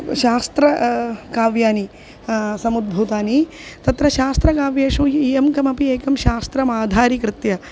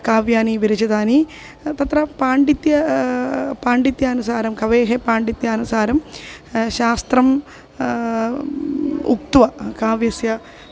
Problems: constant background noise